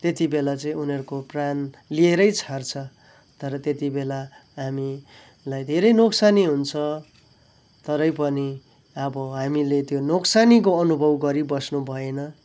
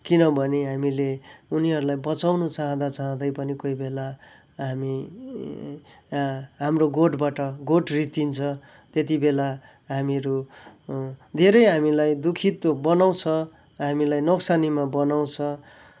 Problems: background sounds at intervals